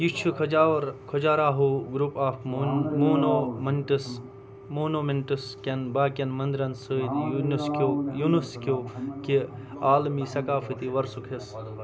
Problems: constant background noise, continuous background conversations